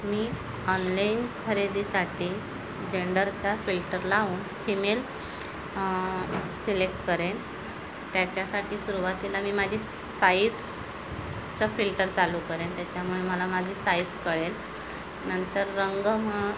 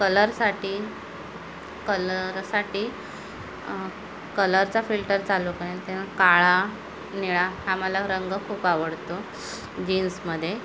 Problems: constant background noise, background conversations at intervals